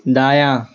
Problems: none marked